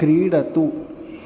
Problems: none marked